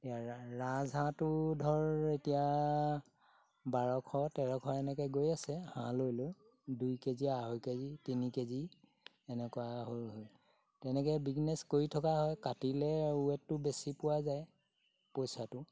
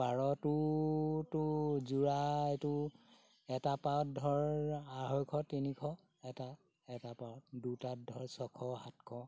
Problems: none marked